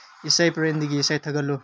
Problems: low volume